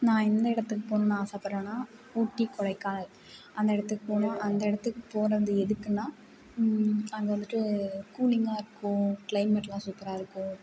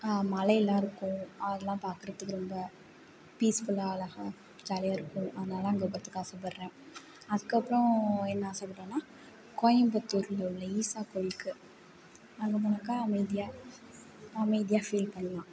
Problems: constant background noise